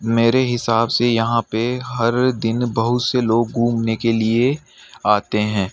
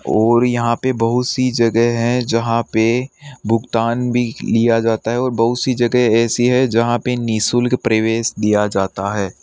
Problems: background sounds at intervals